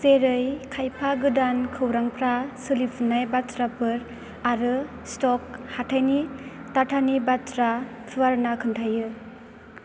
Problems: constant background noise